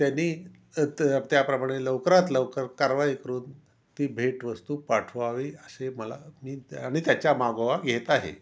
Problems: none marked